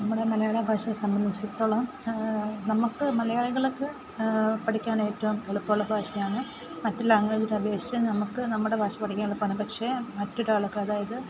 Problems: constant background noise, low volume